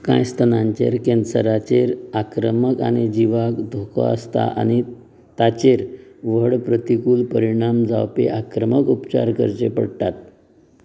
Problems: constant background noise